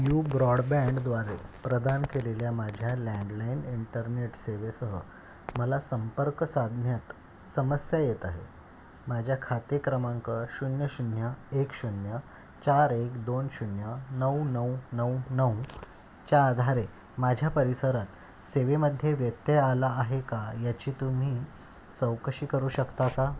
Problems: none marked